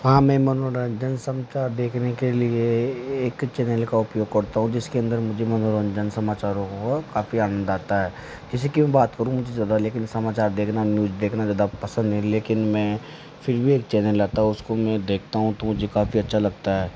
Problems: constant background noise